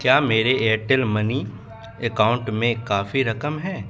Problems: background sounds at intervals, background conversations at intervals